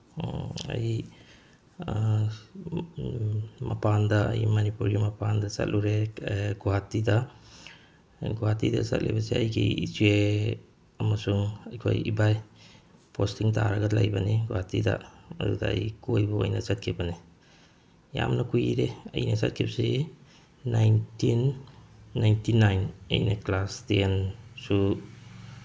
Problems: background sounds at intervals